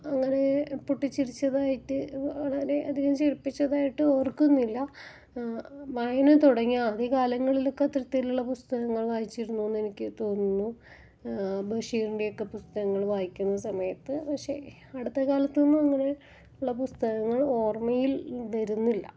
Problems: low volume